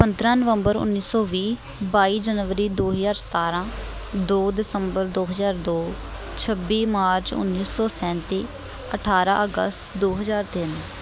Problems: constant background noise